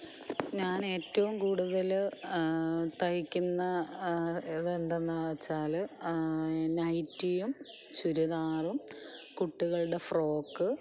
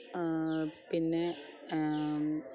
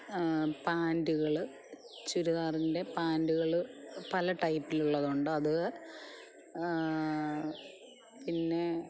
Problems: background sounds at intervals, low volume